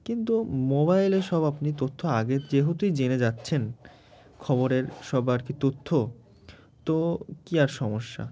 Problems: background sounds at intervals